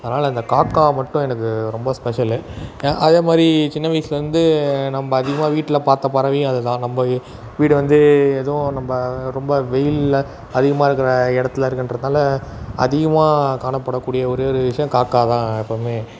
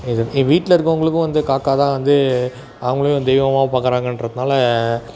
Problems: constant background noise, background conversations at intervals